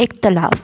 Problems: constant background noise, echo